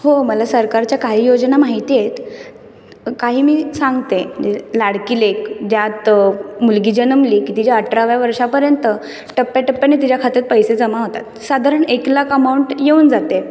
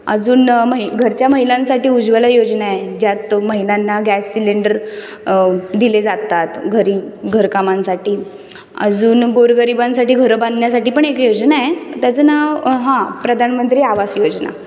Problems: background sounds at intervals